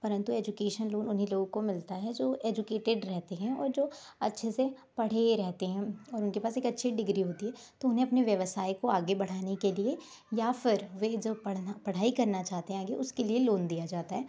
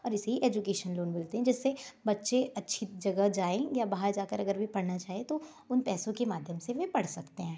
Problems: background sounds at intervals